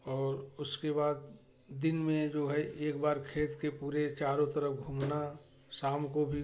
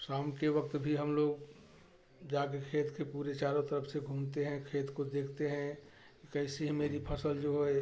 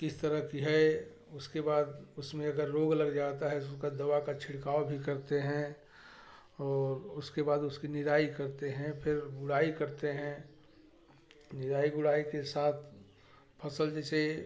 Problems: background sounds at intervals, background conversations at intervals